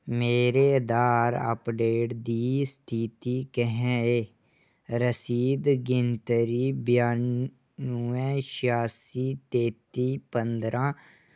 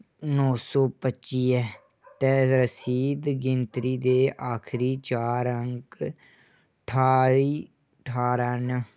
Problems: none marked